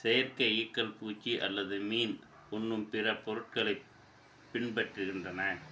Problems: background sounds at intervals